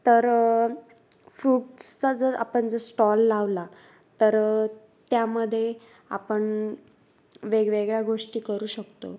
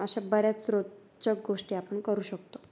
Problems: none marked